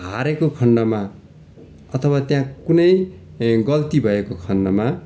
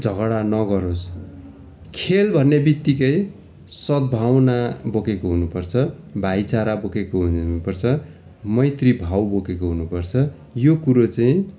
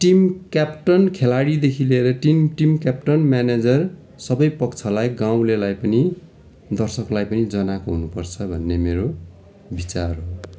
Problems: constant background noise